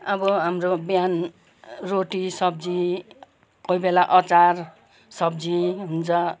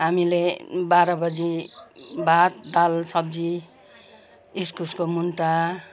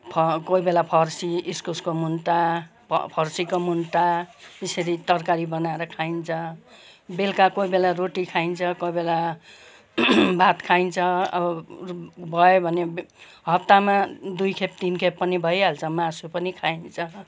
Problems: continuous background conversations